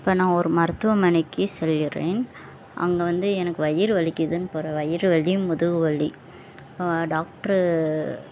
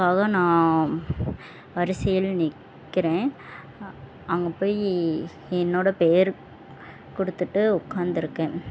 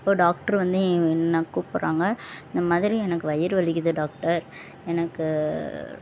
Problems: none marked